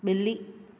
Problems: echo